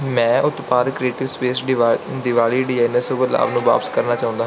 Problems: background sounds at intervals